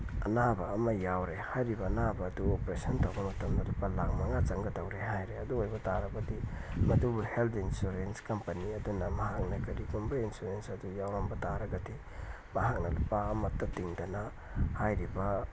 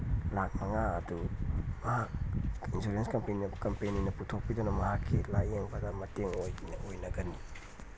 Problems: background sounds at intervals, low volume